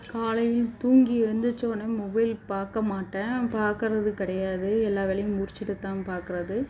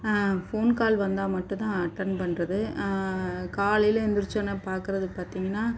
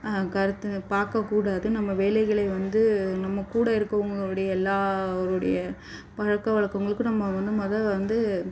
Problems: background sounds at intervals